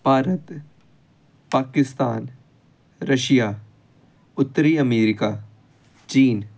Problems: none marked